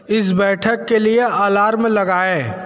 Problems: constant background noise